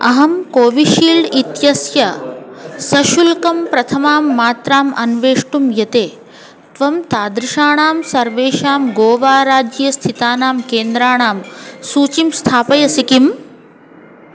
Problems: background sounds at intervals, background conversations at intervals